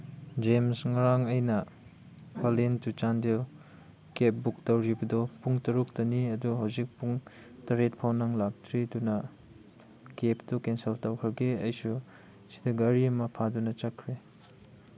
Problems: none marked